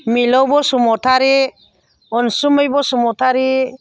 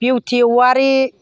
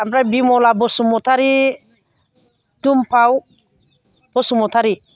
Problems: none marked